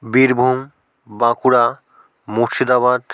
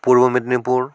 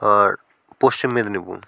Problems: background sounds at intervals